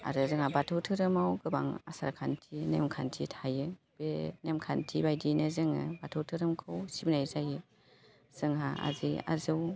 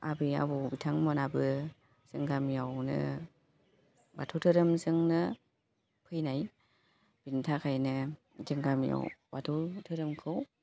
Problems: constant background noise